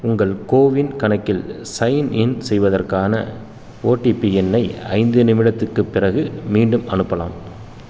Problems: constant background noise